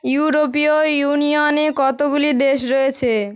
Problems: background sounds at intervals